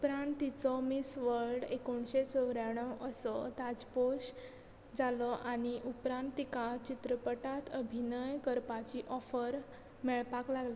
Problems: background sounds at intervals